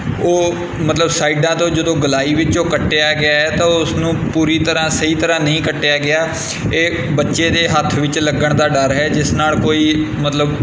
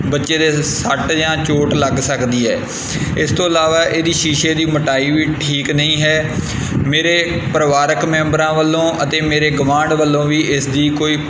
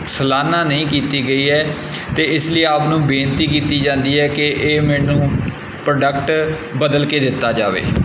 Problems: constant background noise